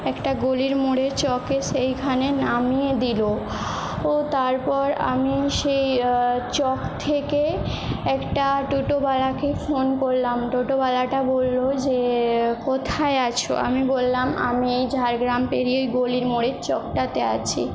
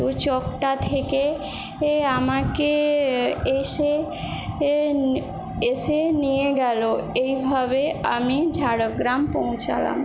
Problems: constant background noise